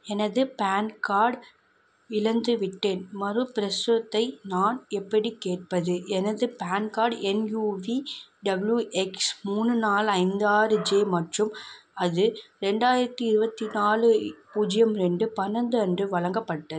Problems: background sounds at intervals